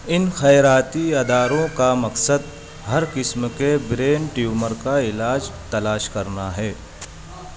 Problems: constant background noise